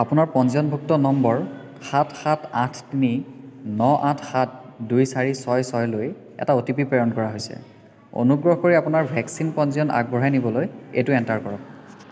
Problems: constant background noise